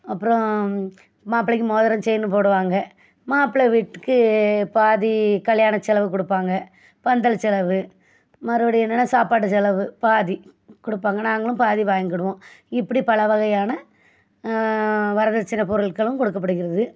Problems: none marked